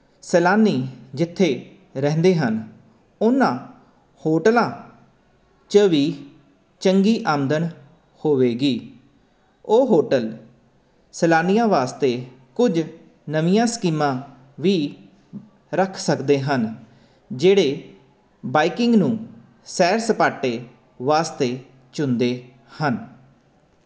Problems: none marked